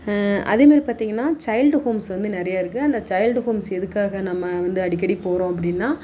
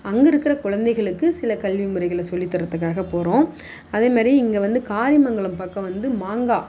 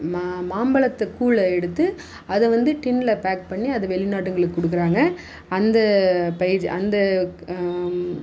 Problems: background sounds at intervals